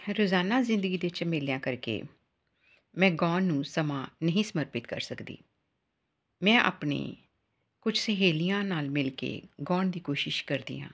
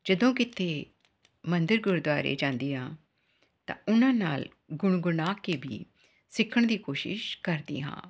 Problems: background sounds at intervals